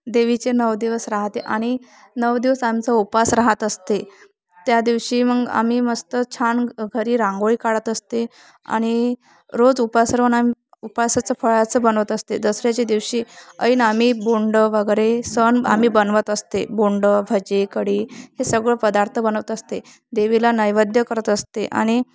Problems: none marked